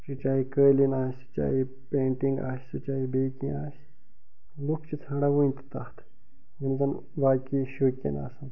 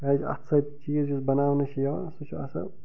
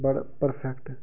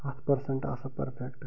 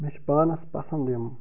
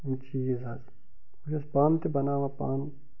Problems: background sounds at intervals, low volume